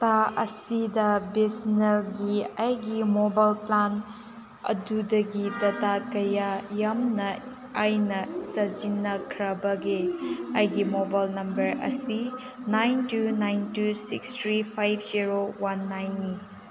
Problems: background sounds at intervals, background conversations at intervals